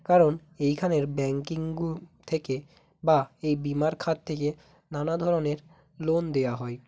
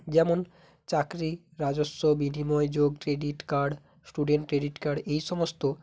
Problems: none marked